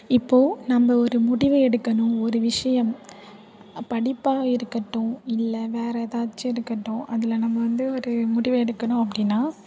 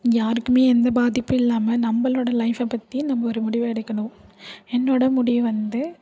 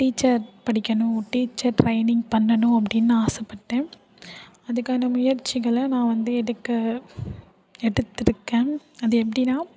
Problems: none marked